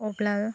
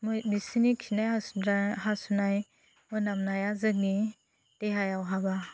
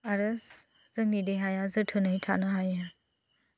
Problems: low volume